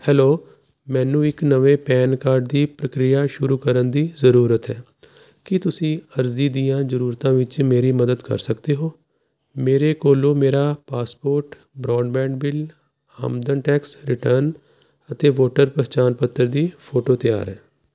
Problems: constant background noise